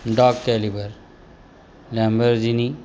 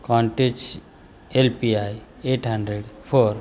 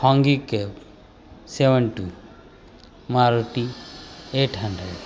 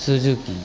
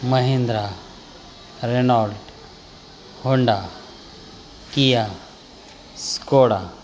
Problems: constant background noise